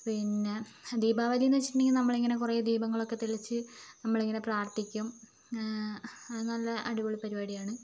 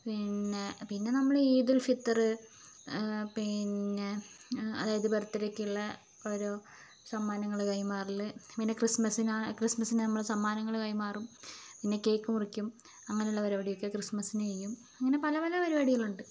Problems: low volume